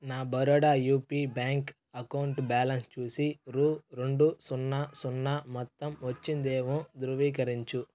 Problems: background sounds at intervals